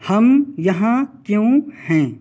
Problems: none marked